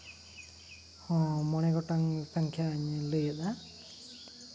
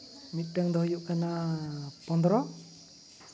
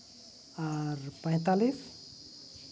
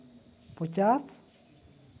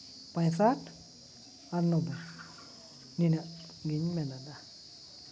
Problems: constant background noise